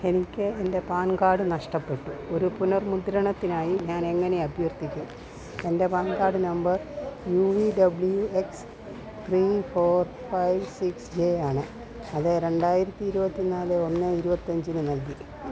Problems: constant background noise